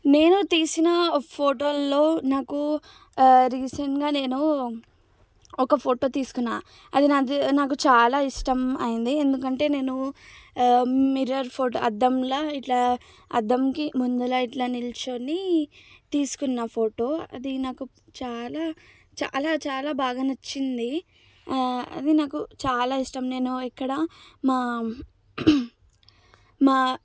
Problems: low volume